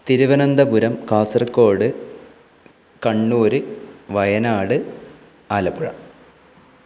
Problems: constant background noise